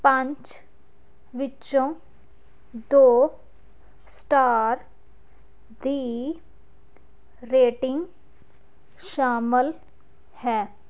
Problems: none marked